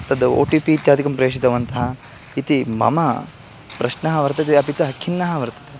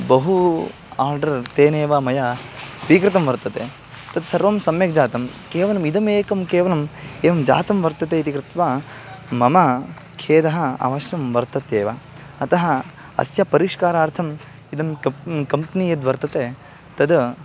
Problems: none marked